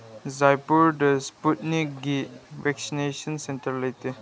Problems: none marked